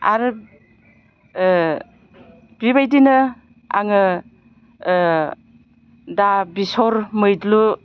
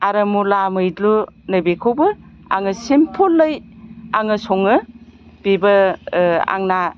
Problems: none marked